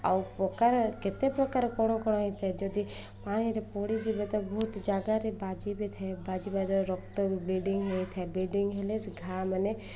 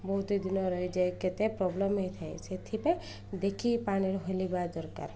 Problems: none marked